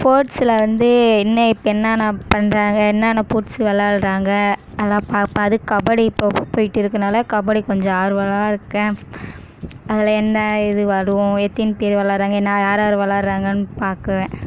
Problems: constant background noise